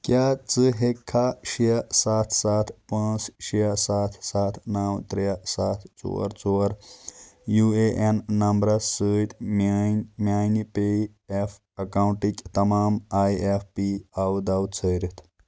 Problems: constant background noise